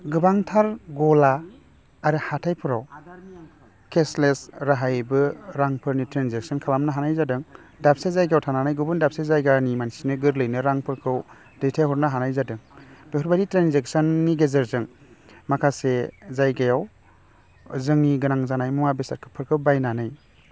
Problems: none marked